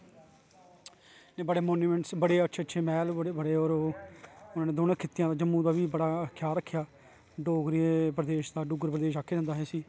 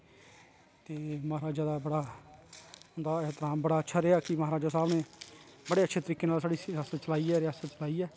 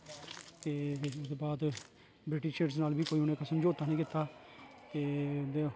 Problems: low volume